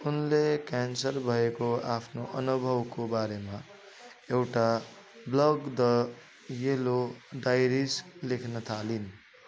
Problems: continuous background conversations